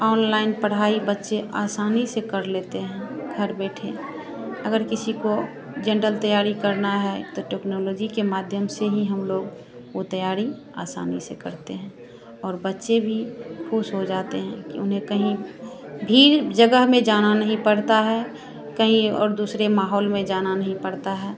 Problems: none marked